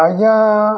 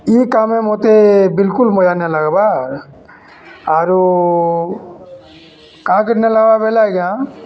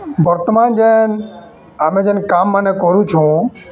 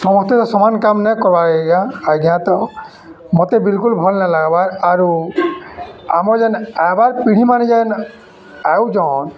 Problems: background sounds at intervals, background conversations at intervals